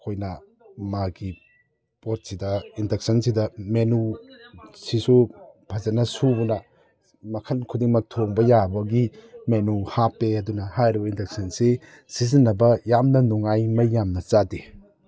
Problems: none marked